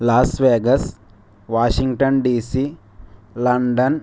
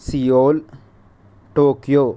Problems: none marked